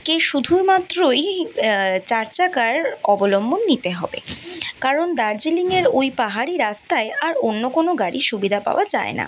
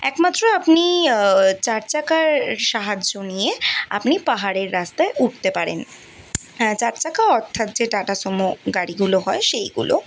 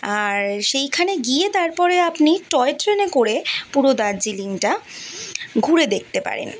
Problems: constant background noise